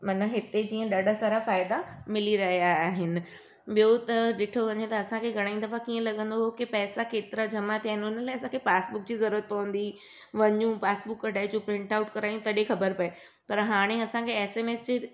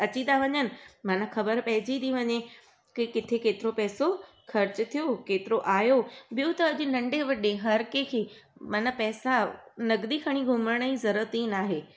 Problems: none marked